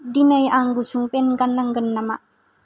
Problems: none marked